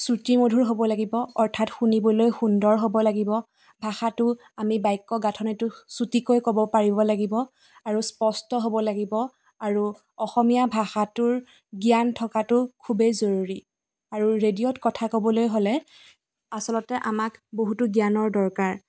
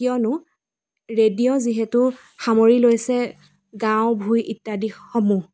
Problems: background sounds at intervals